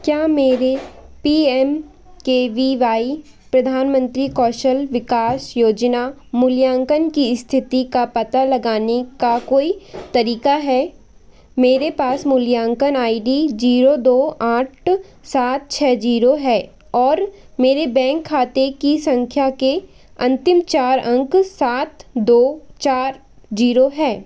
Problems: none marked